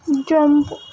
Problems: constant background noise